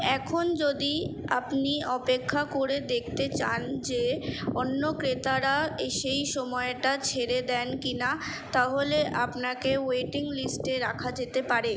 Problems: none marked